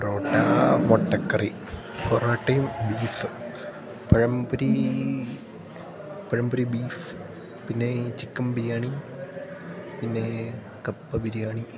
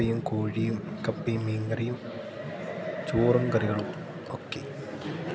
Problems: background sounds at intervals